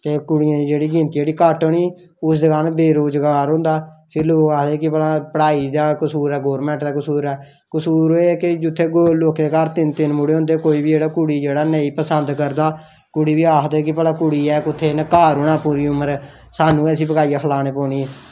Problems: none marked